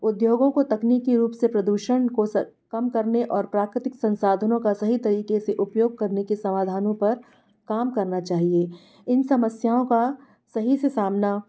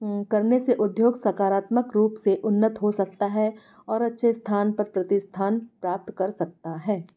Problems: none marked